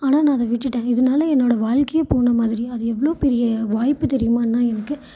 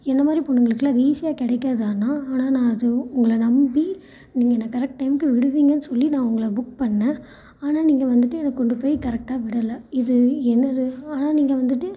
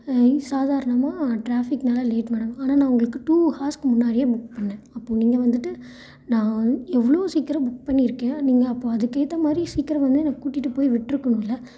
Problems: echo